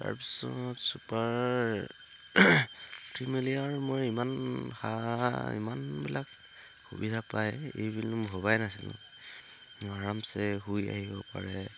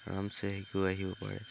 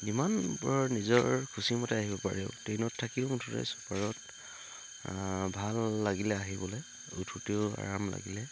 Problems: constant background noise